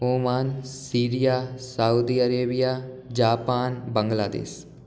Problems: none marked